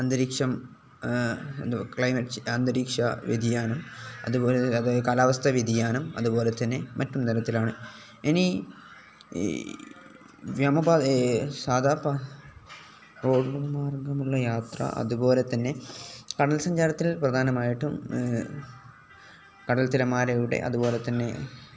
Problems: none marked